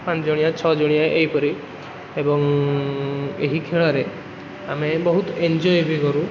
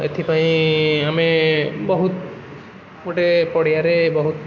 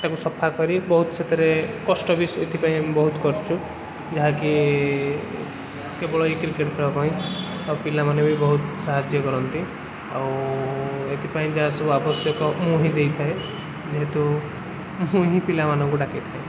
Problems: constant background noise